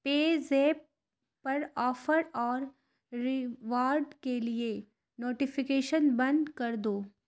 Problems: none marked